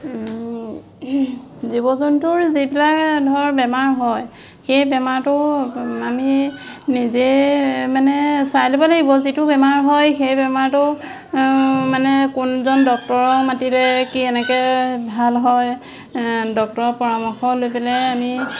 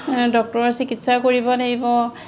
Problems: none marked